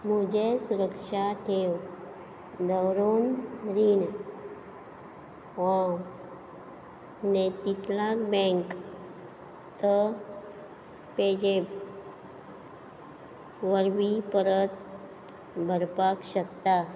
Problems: background sounds at intervals